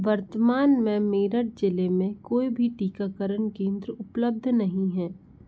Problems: none marked